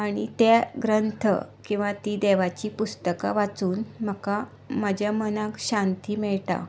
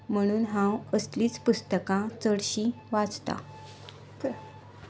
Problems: none marked